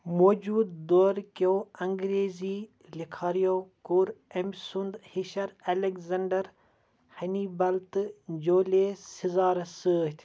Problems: background sounds at intervals